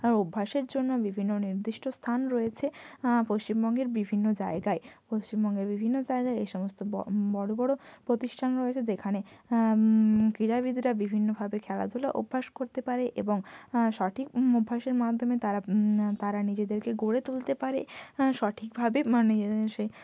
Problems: none marked